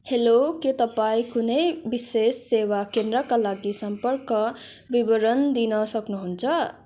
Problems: background sounds at intervals